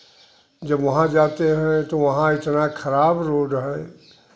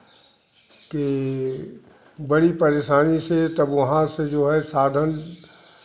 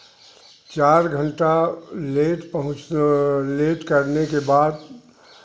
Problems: constant background noise